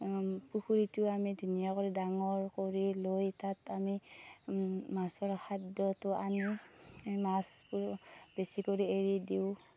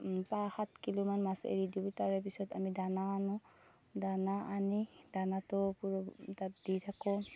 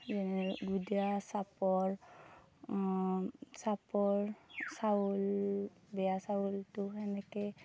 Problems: none marked